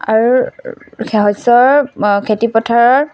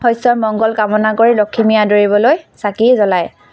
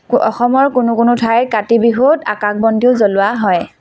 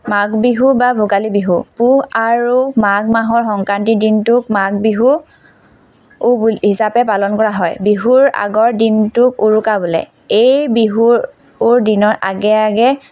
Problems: constant background noise, background conversations at intervals